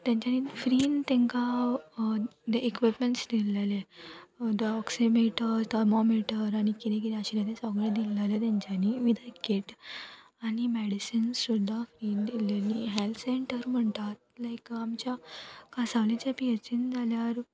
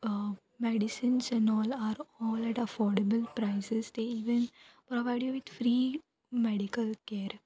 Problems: constant background noise, background conversations at intervals